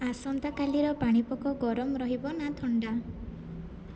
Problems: low volume